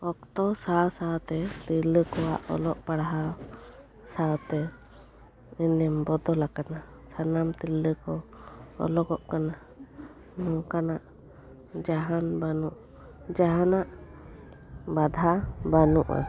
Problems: background sounds at intervals, low volume